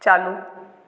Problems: background sounds at intervals